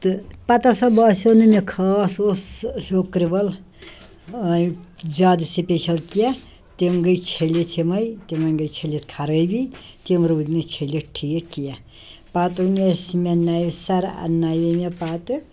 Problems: background sounds at intervals, background conversations at intervals